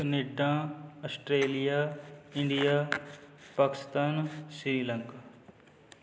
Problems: none marked